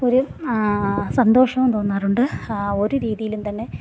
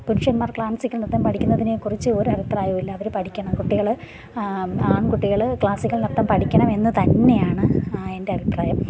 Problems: background sounds at intervals